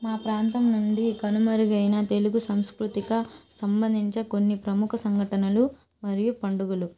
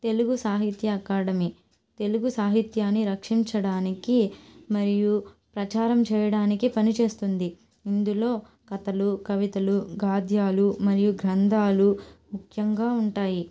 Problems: background sounds at intervals